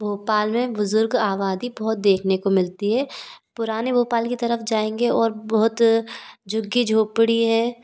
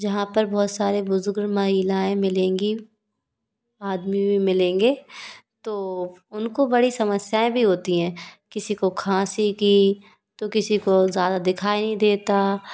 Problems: constant background noise